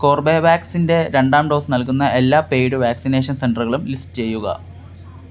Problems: none marked